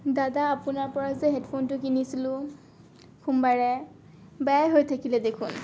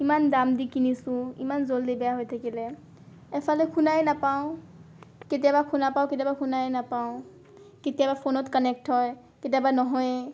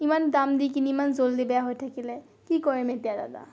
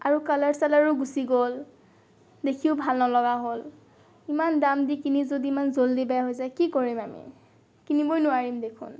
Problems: none marked